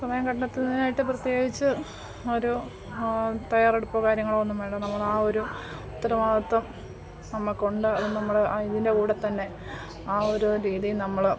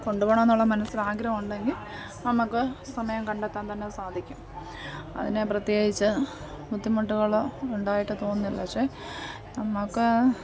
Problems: none marked